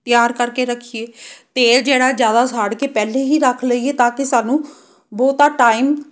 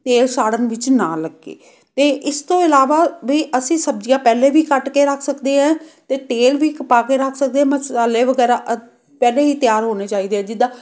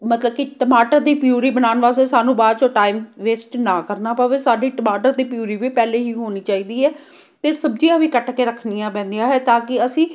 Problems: none marked